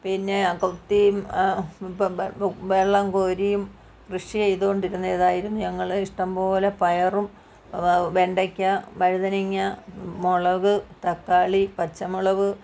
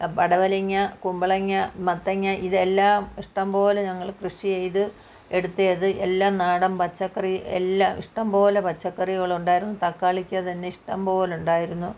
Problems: none marked